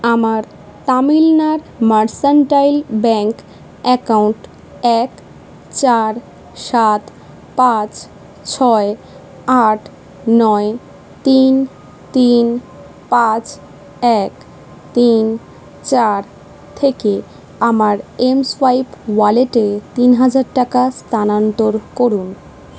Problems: none marked